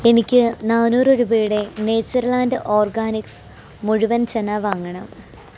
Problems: none marked